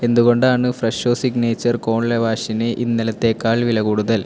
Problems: constant background noise